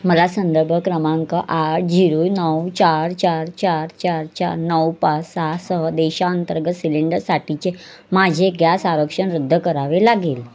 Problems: constant background noise